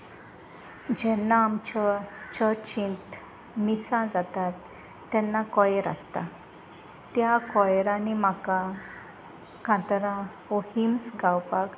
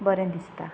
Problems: background sounds at intervals, background conversations at intervals